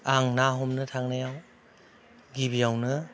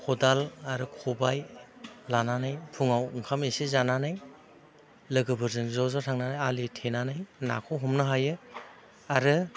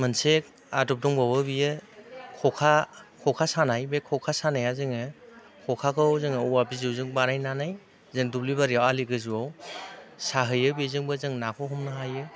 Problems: constant background noise